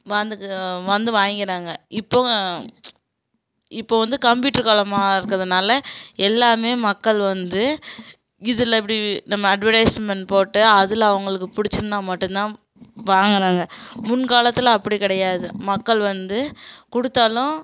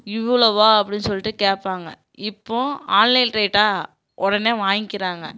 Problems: background sounds at intervals